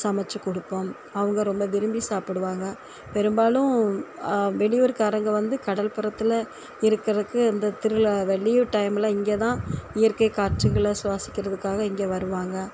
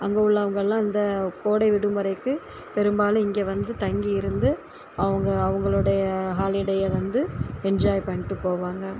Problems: constant background noise